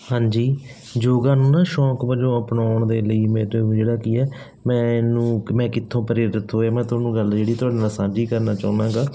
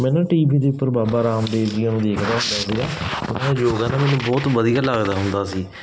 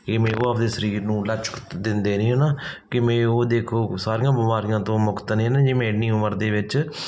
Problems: background sounds at intervals